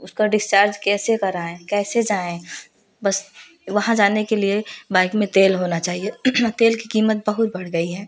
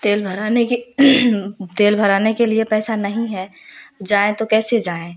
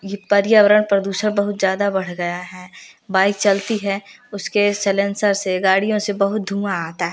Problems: background sounds at intervals, background conversations at intervals